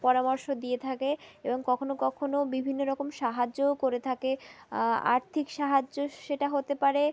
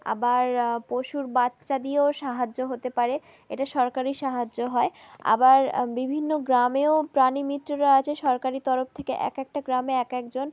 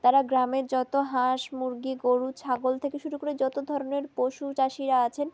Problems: background sounds at intervals